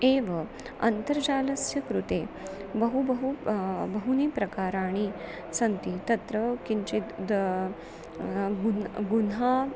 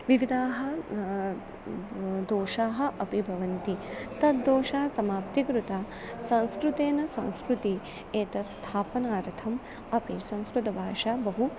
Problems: none marked